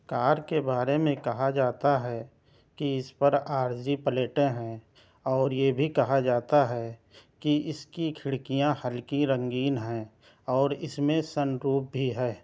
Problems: none marked